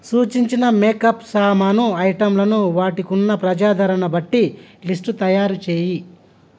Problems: constant background noise